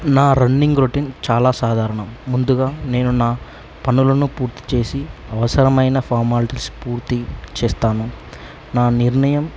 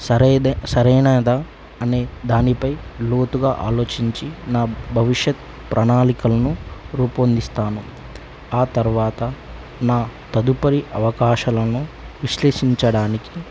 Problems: constant background noise